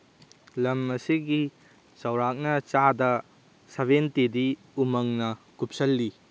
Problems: none marked